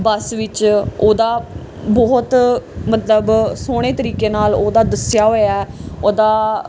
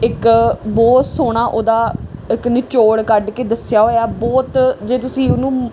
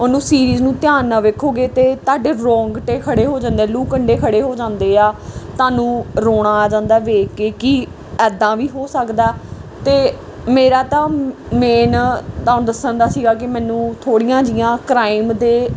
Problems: background sounds at intervals